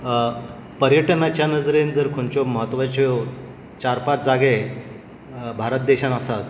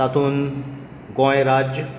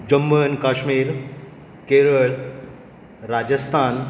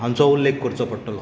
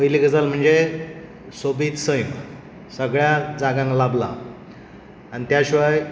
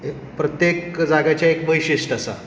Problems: constant background noise